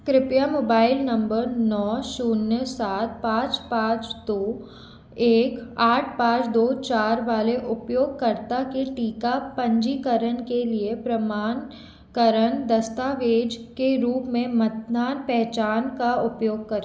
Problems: none marked